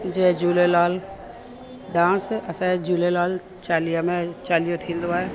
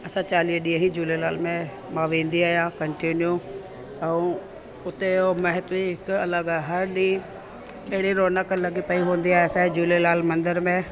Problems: constant background noise, echo